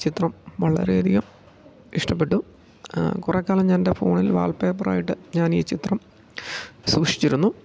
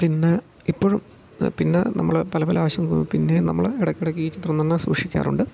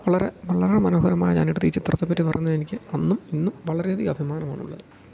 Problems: low volume